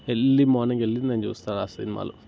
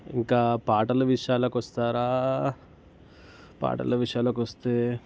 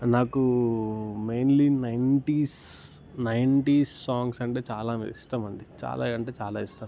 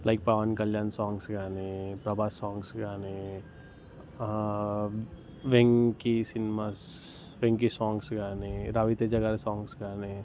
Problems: background sounds at intervals